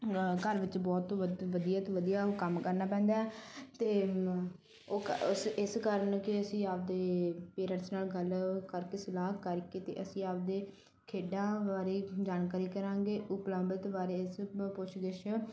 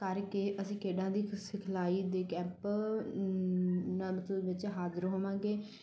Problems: none marked